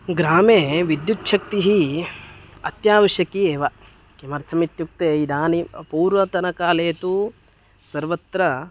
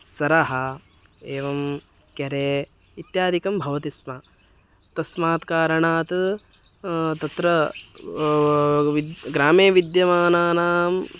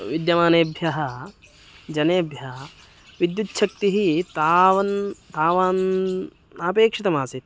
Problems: constant background noise